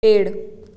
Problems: none marked